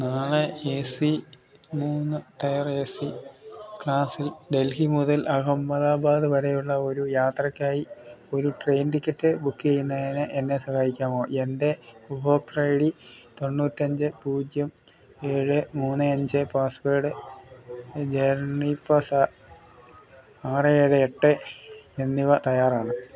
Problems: constant background noise, low volume